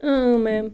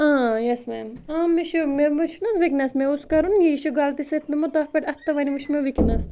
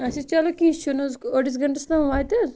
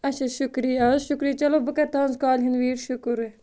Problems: none marked